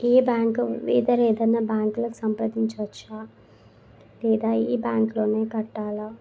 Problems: constant background noise